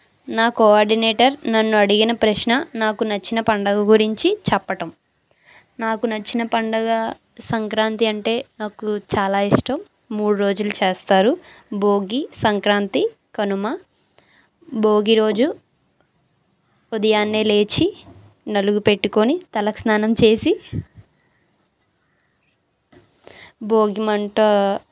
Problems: none marked